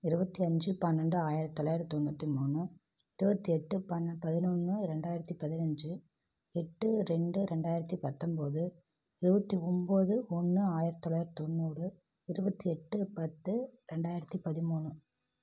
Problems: none marked